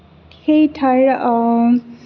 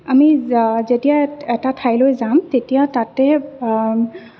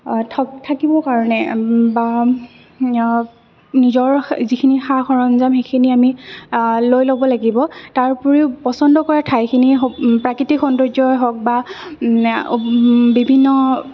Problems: none marked